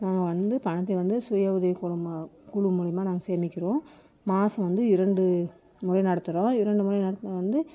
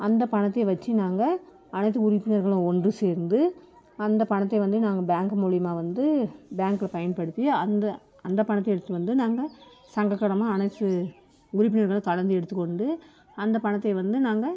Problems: none marked